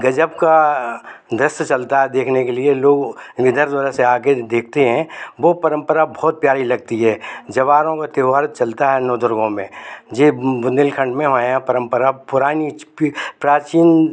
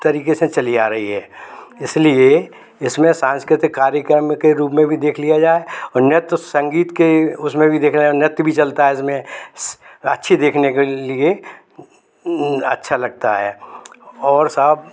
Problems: constant background noise, background conversations at intervals